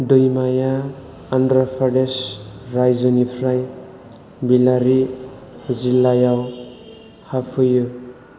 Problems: constant background noise